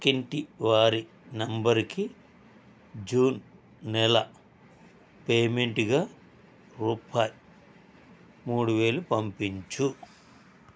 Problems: constant background noise